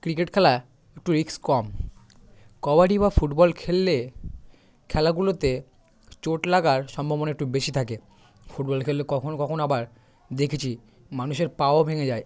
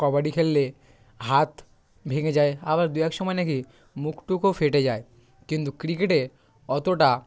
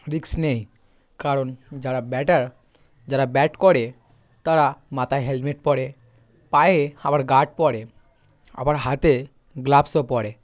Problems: background sounds at intervals, background conversations at intervals